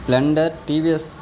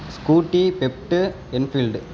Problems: constant background noise